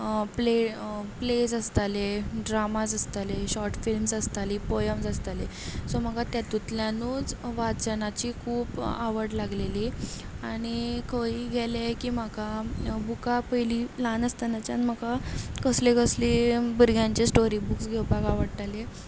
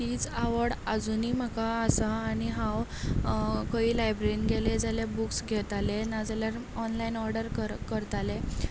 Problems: none marked